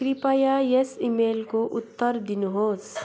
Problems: constant background noise